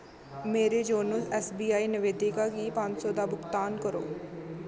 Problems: constant background noise